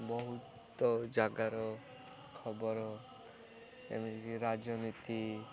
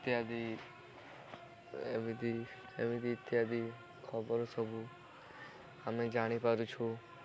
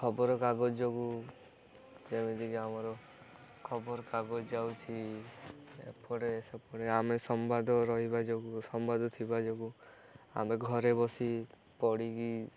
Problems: continuous background conversations